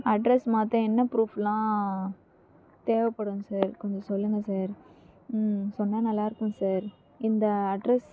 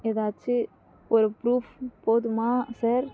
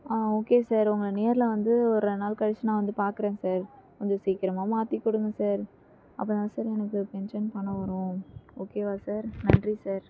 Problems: low volume